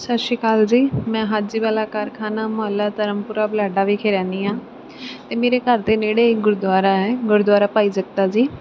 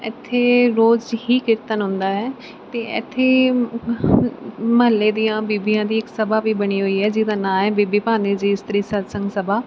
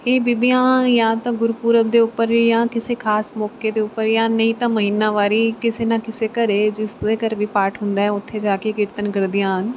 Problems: background sounds at intervals